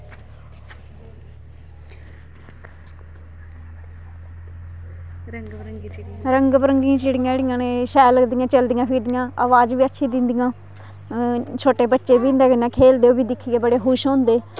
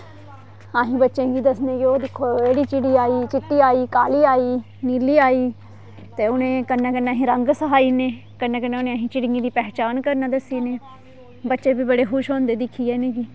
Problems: constant background noise